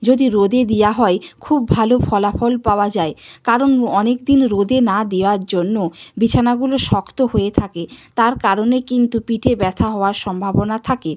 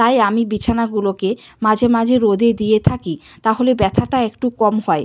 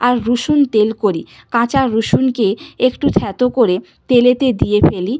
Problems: constant background noise